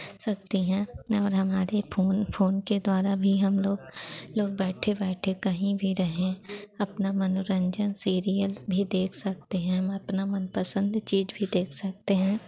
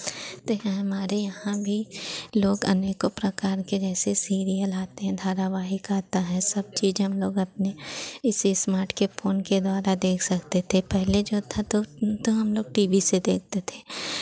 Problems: constant background noise